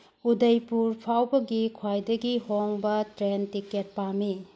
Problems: low volume